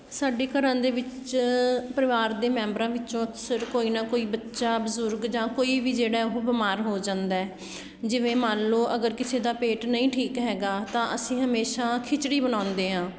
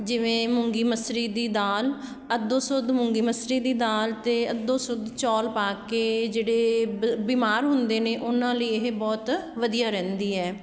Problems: background sounds at intervals